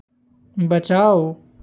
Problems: constant background noise